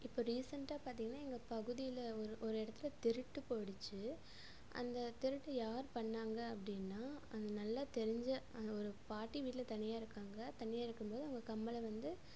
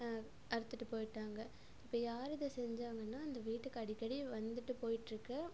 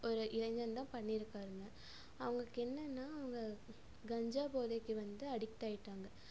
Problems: constant background noise, low volume